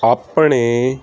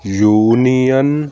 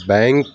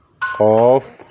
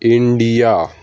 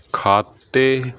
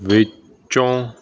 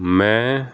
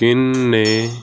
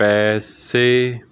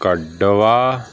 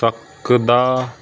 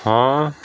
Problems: constant background noise